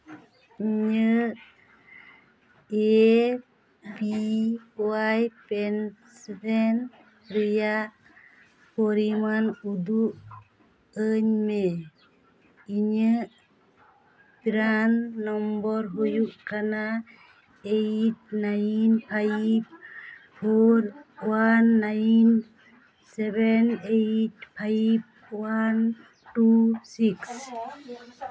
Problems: background conversations at intervals